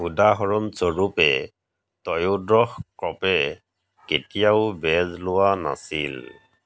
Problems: none marked